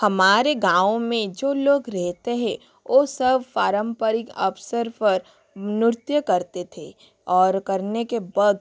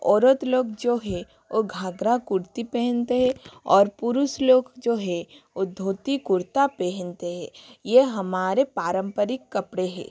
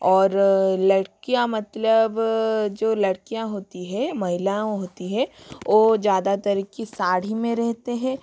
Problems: constant background noise